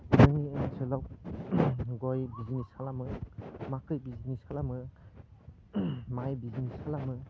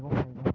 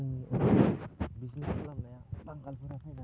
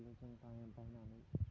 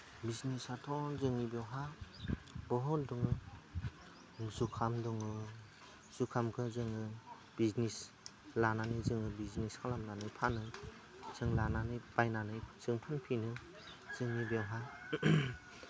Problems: constant background noise, low volume